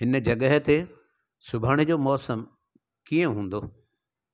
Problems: none marked